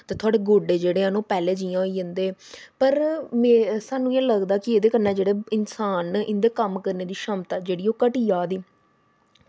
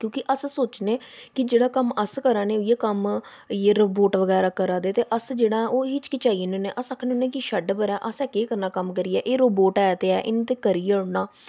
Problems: background sounds at intervals